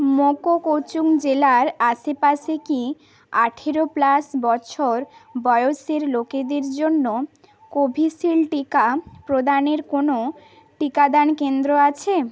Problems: constant background noise, background conversations at intervals